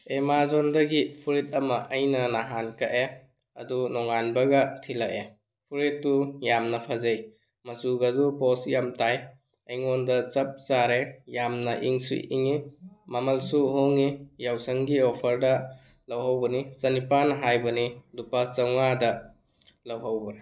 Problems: none marked